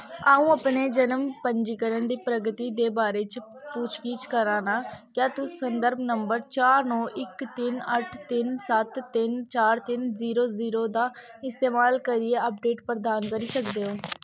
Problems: none marked